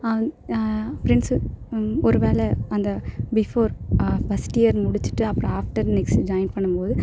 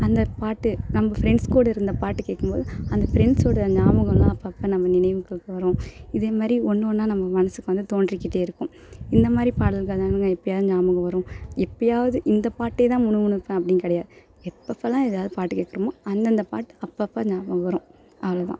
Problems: none marked